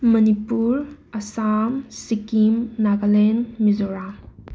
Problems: background sounds at intervals